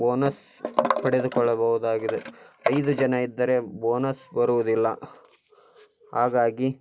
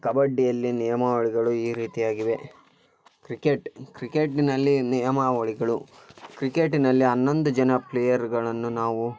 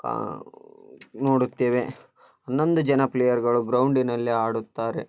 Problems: constant background noise